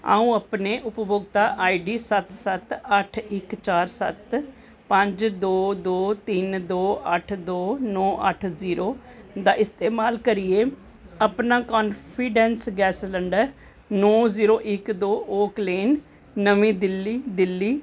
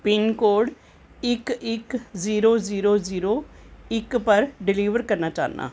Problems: none marked